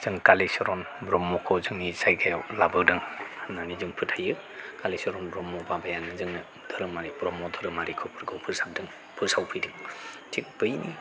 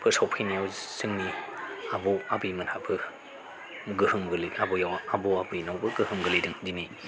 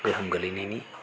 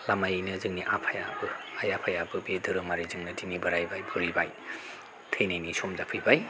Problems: constant background noise